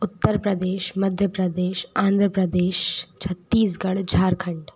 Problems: none marked